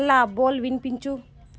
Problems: none marked